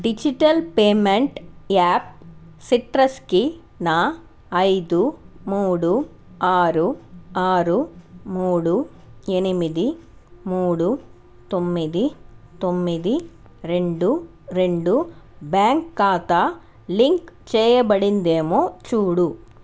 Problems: none marked